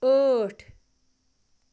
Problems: constant background noise